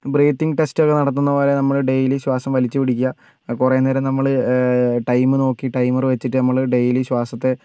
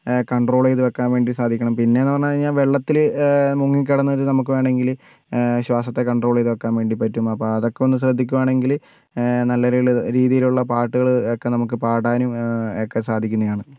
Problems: none marked